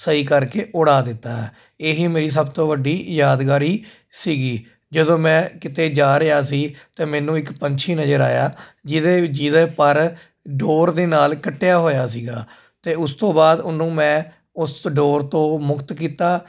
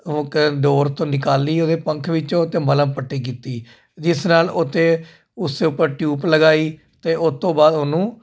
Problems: constant background noise